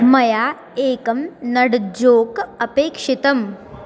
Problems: background sounds at intervals